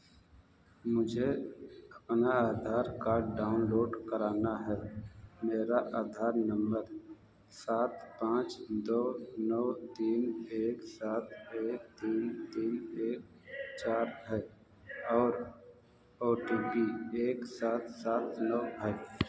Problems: background sounds at intervals, echo, low volume